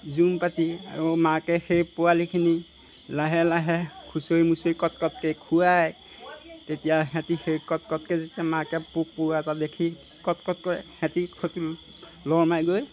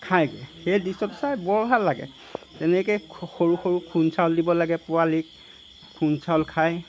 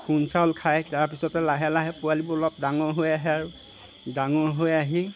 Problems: background sounds at intervals